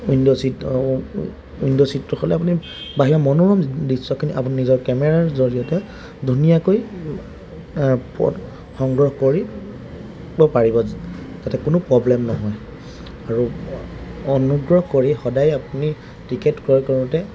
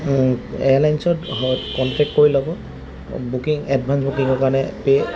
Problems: background sounds at intervals